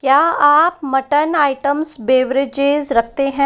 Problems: none marked